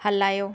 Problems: none marked